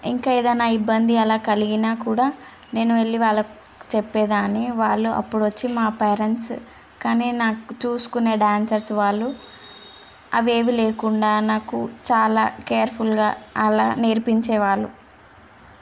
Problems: constant background noise